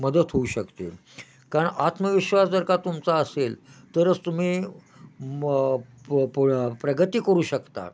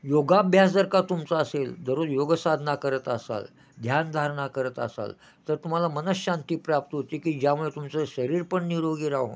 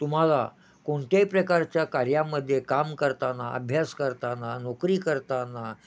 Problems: none marked